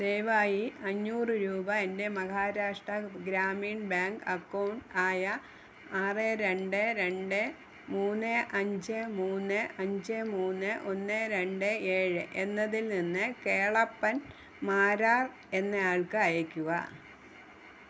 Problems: constant background noise